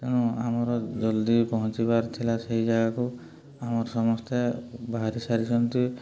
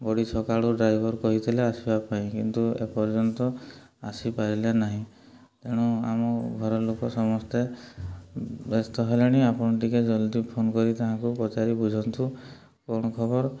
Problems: low volume